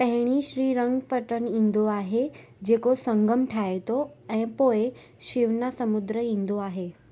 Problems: constant background noise